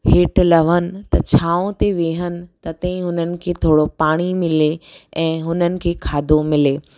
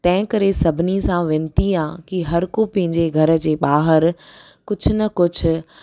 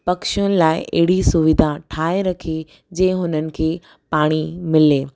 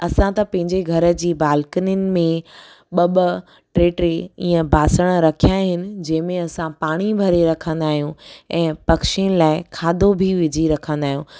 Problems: none marked